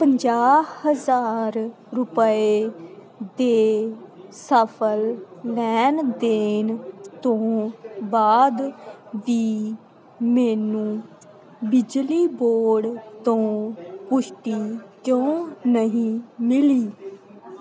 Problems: continuous background conversations